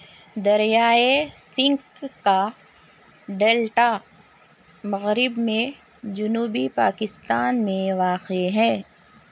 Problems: constant background noise